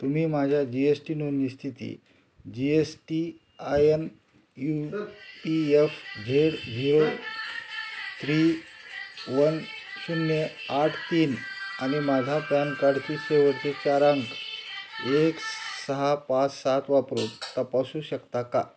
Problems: constant background noise, continuous background conversations